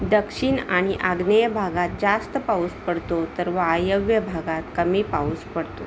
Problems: constant background noise